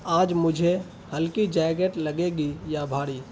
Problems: constant background noise